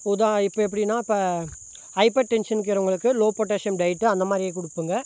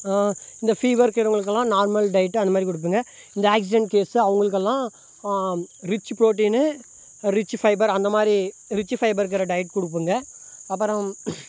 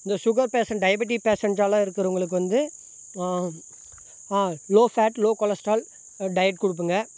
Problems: none marked